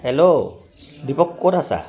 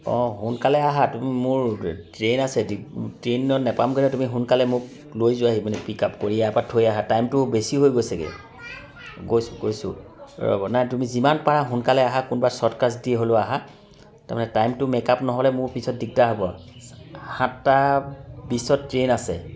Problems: continuous background conversations